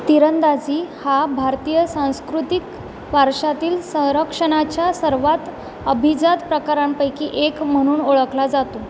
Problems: none marked